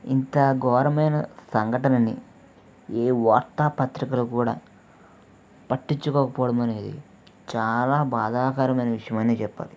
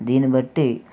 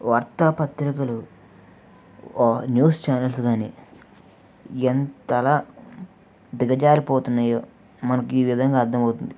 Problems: none marked